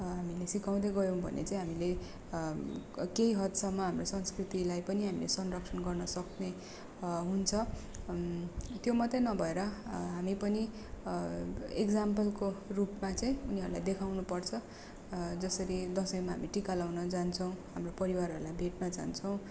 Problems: none marked